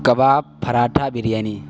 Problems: constant background noise